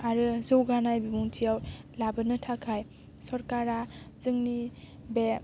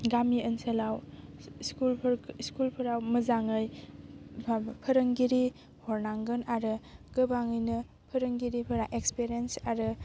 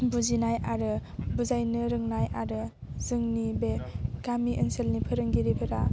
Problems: constant background noise